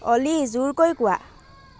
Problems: background sounds at intervals, background conversations at intervals